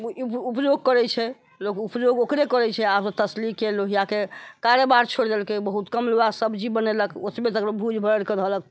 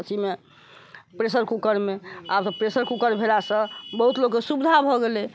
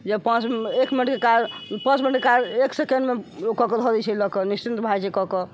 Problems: constant background noise